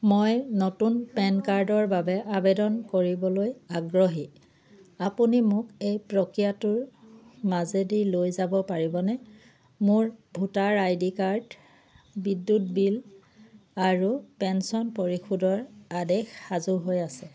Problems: none marked